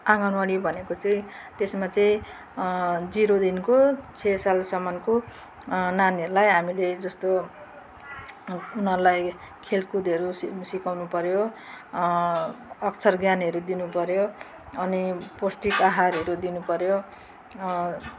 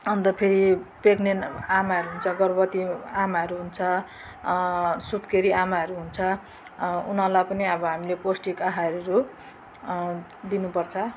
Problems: constant background noise